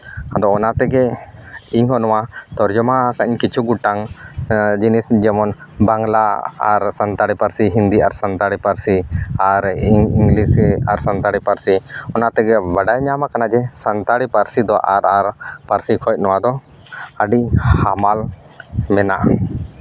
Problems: none marked